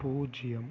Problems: low volume